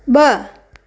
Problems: none marked